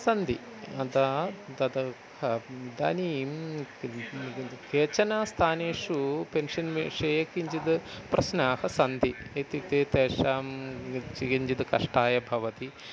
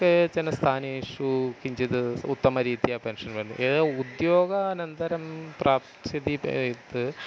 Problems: constant background noise